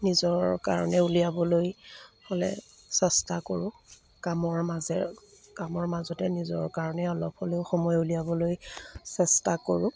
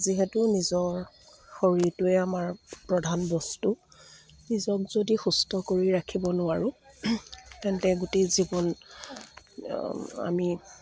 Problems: none marked